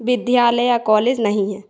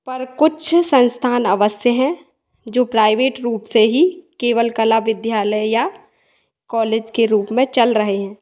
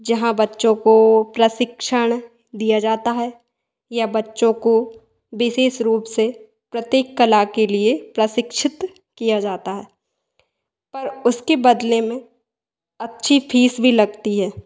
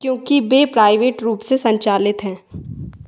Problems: background sounds at intervals, echo